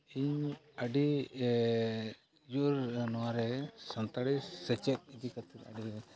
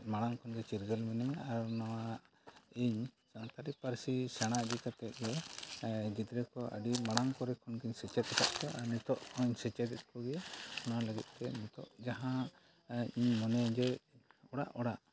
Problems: low volume